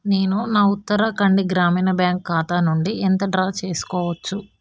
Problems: background sounds at intervals